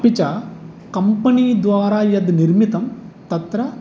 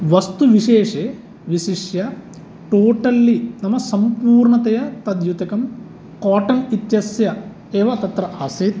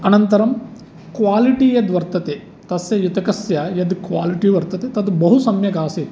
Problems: none marked